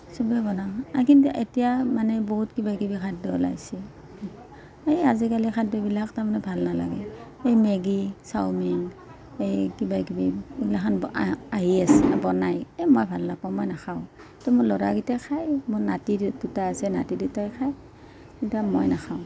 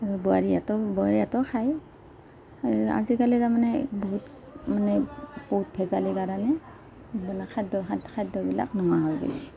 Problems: background conversations at intervals